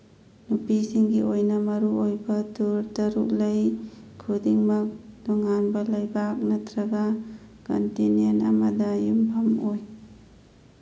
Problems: background sounds at intervals